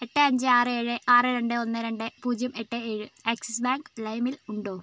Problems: none marked